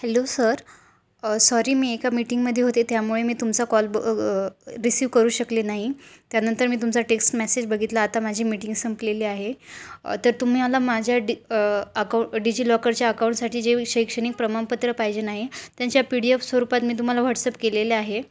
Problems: none marked